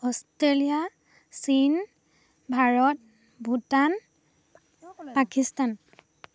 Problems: background conversations at intervals